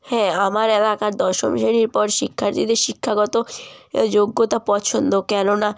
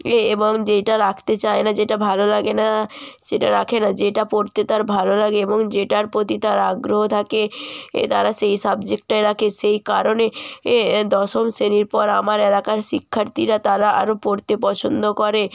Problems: constant background noise